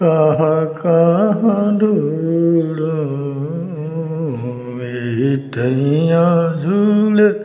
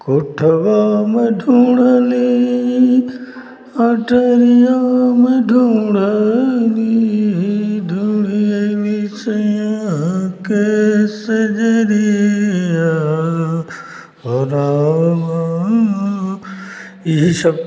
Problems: constant background noise, continuous background conversations